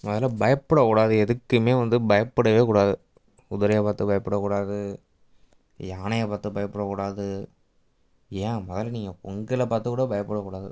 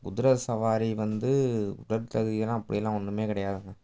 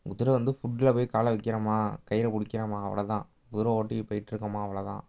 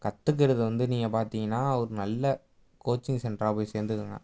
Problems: background sounds at intervals